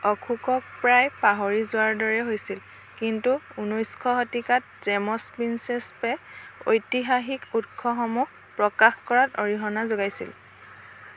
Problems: constant background noise